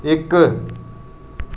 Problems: none marked